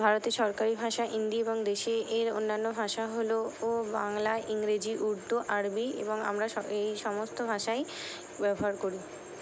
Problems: none marked